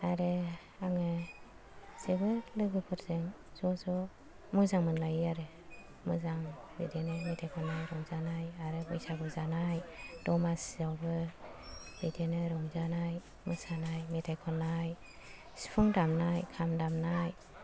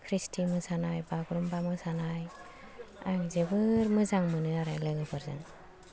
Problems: low volume